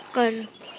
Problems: none marked